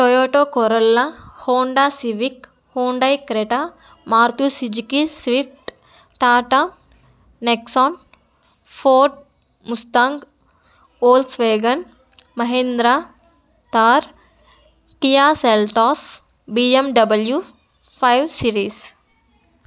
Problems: none marked